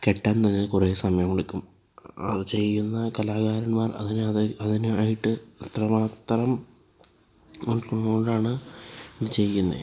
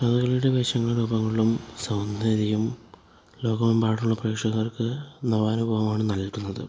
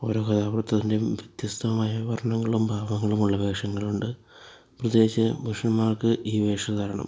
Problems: low volume